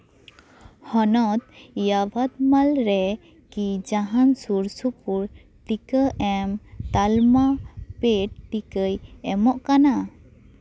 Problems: continuous background conversations